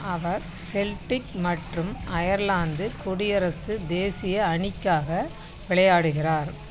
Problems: constant background noise